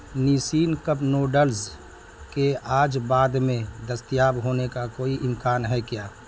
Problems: constant background noise